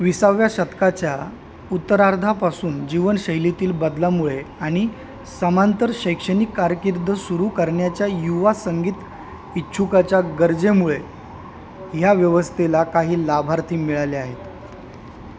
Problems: none marked